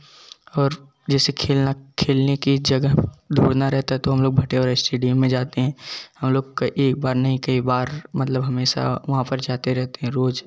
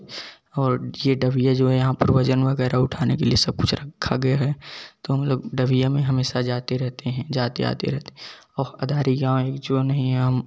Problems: background sounds at intervals, continuous background conversations